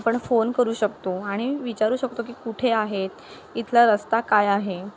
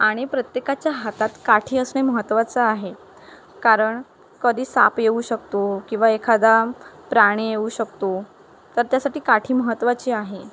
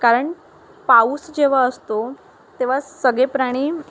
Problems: none marked